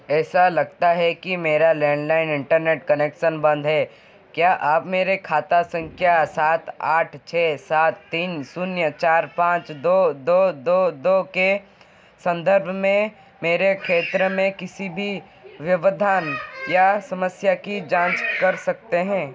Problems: constant background noise